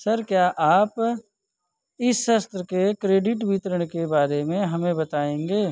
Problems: none marked